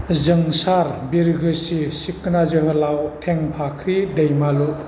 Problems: constant background noise